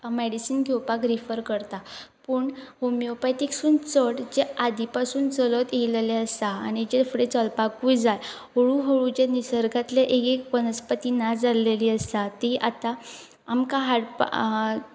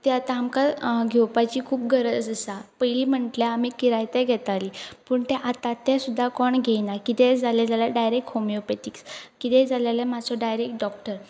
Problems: background sounds at intervals